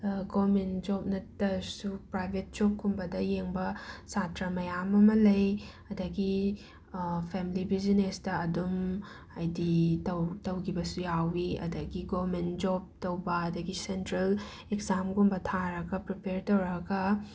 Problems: background sounds at intervals